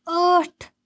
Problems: background sounds at intervals